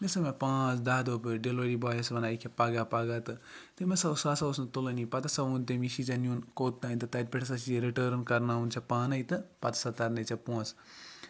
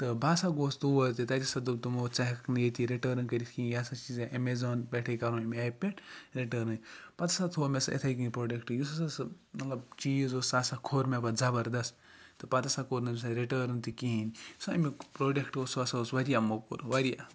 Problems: background sounds at intervals, background conversations at intervals